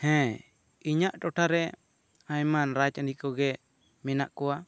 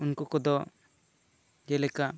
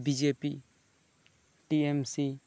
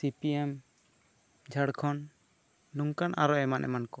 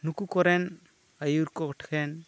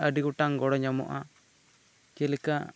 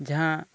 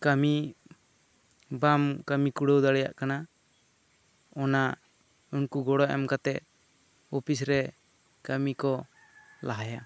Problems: constant background noise